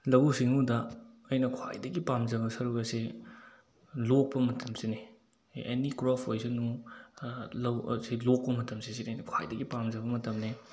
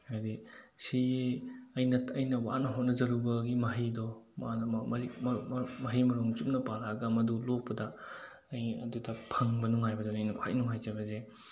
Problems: none marked